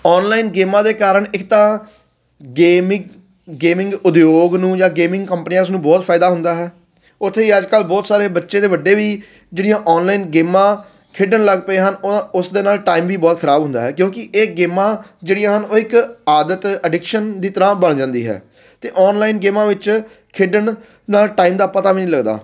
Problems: none marked